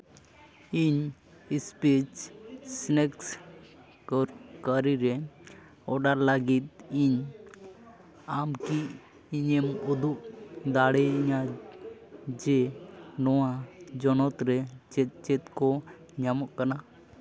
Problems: background sounds at intervals, background conversations at intervals